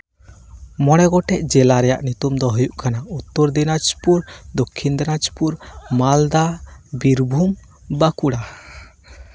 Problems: background sounds at intervals